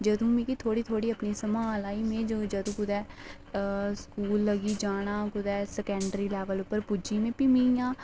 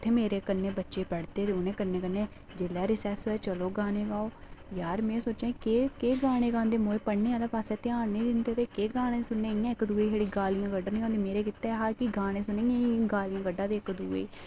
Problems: background sounds at intervals